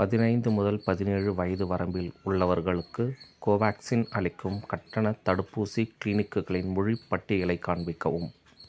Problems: none marked